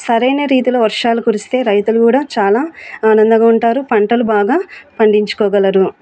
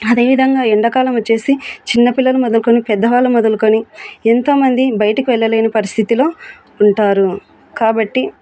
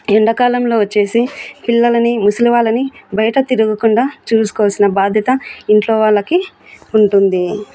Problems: background sounds at intervals